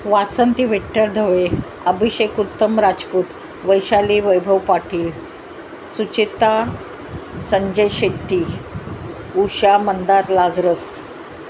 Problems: background sounds at intervals